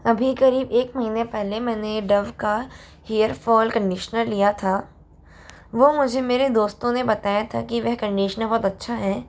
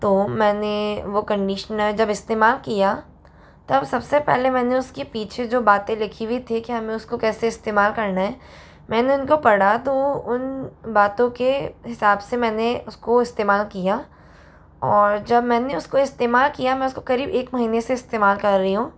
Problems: none marked